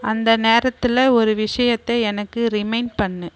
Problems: constant background noise